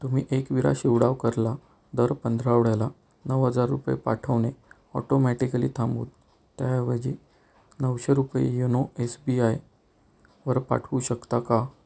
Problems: none marked